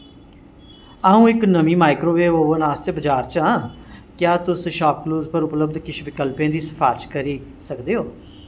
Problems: none marked